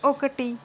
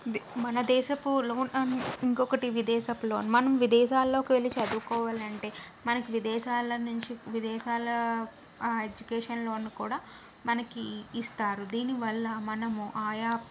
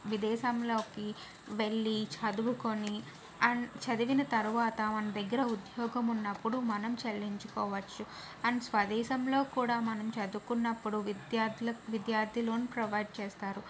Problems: none marked